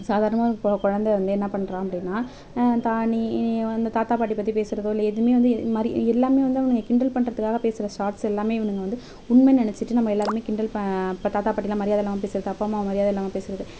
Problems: background sounds at intervals, background conversations at intervals